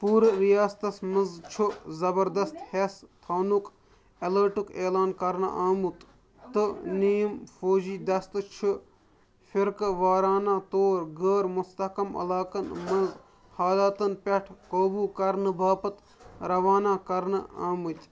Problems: constant background noise, background conversations at intervals